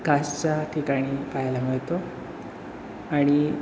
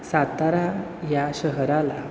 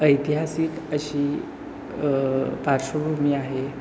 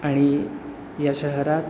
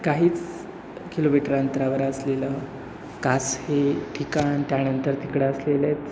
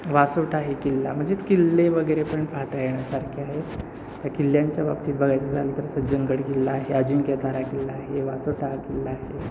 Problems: constant background noise